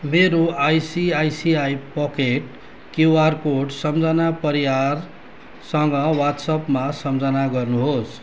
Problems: background sounds at intervals